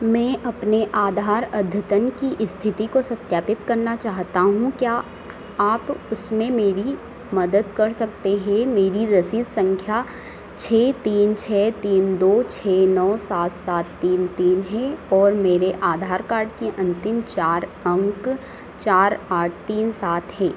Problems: constant background noise